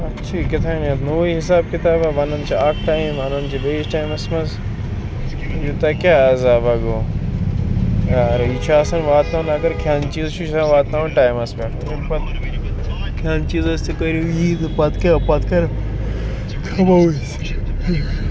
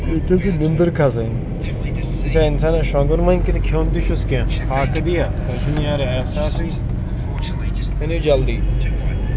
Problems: constant background noise